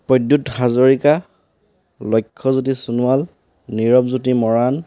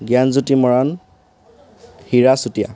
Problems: none marked